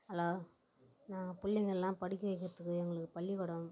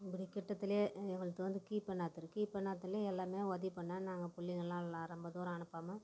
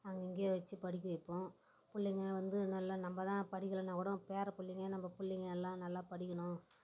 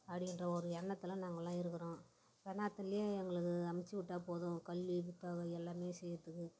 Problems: background sounds at intervals, low volume